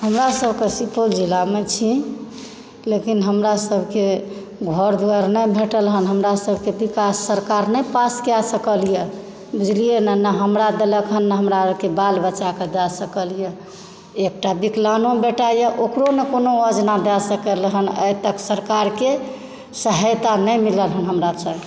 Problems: background sounds at intervals